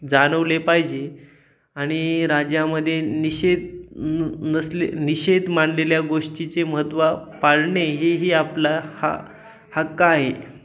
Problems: none marked